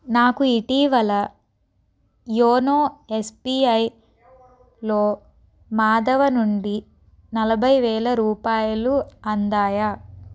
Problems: background conversations at intervals